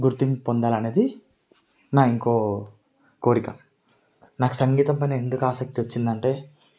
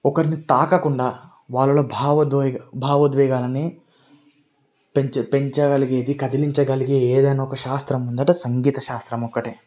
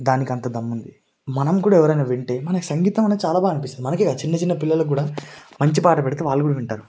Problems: none marked